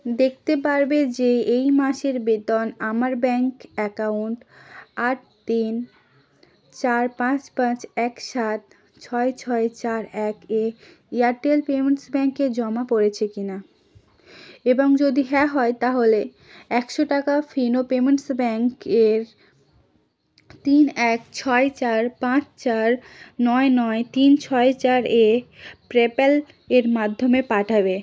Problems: constant background noise